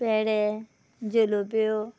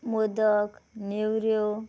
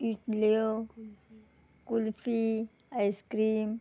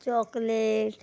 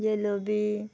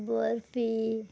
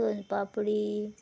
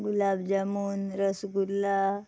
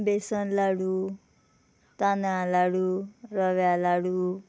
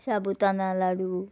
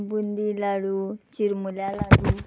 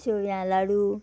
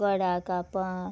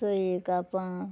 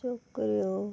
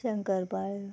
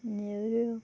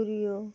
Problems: background sounds at intervals